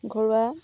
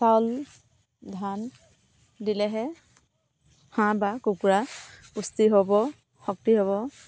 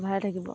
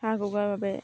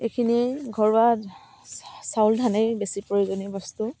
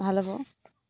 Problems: constant background noise